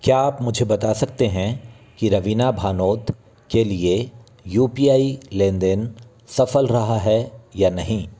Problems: background sounds at intervals